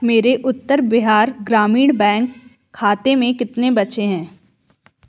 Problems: none marked